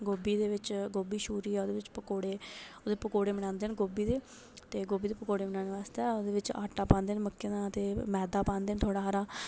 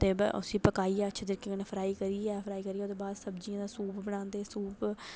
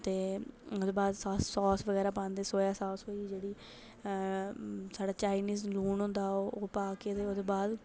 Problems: none marked